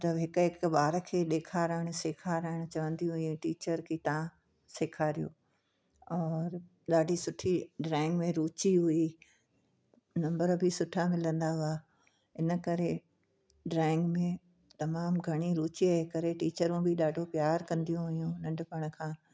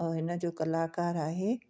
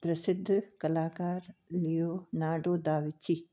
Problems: background sounds at intervals